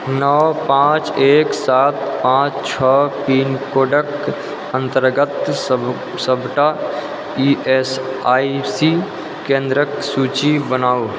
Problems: constant background noise